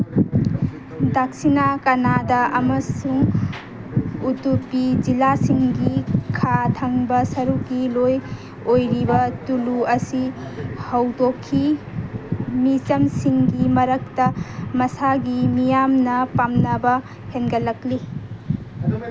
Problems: background sounds at intervals, background conversations at intervals